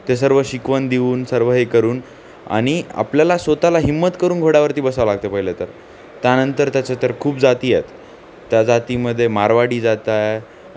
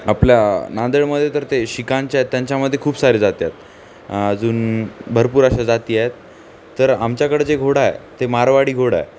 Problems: constant background noise, background conversations at intervals